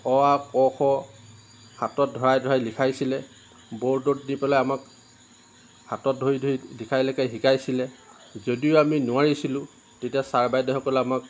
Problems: none marked